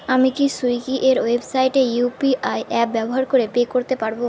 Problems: none marked